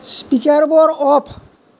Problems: none marked